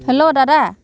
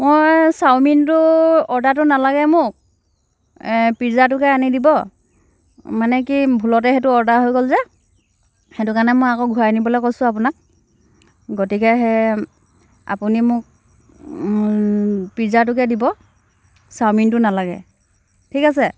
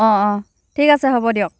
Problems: constant background noise